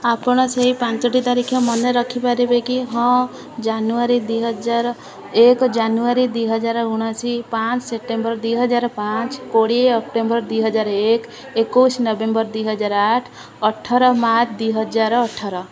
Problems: none marked